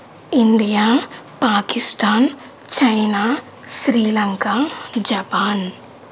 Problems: none marked